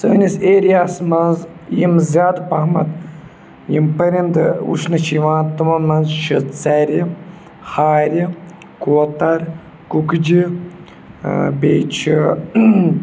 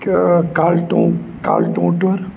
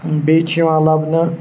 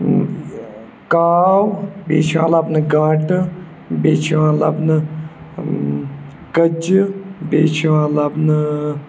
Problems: none marked